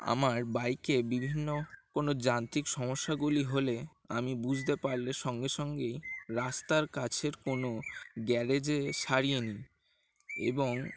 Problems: constant background noise